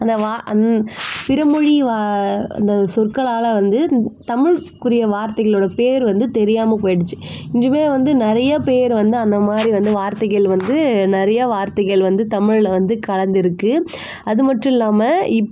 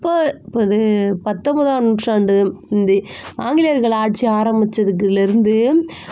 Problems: constant background noise